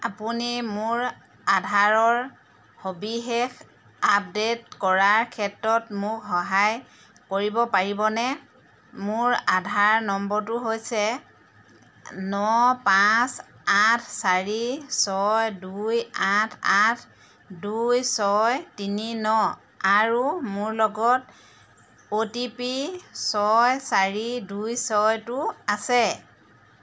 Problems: constant background noise